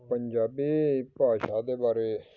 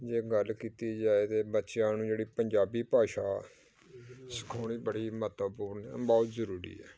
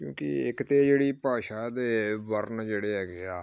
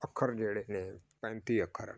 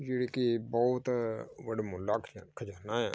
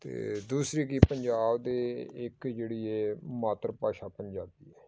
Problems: background sounds at intervals, background conversations at intervals